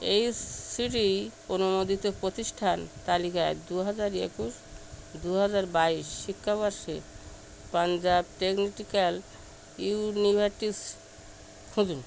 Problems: constant background noise